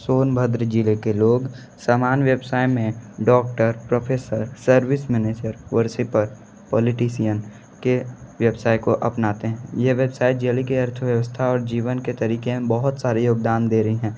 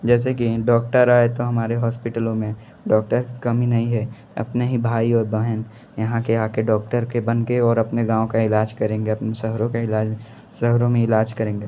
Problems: background sounds at intervals